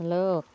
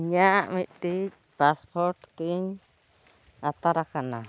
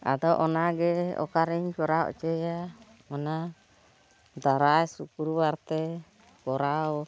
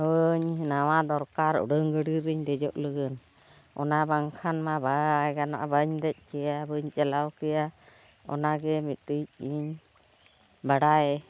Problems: constant background noise, continuous background conversations